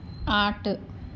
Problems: none marked